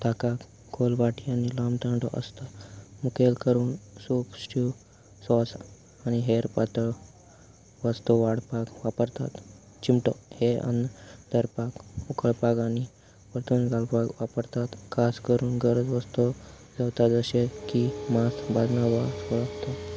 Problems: none marked